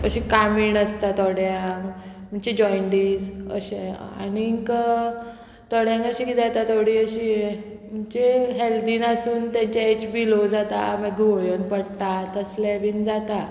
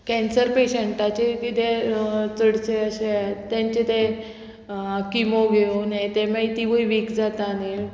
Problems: none marked